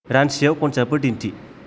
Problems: background sounds at intervals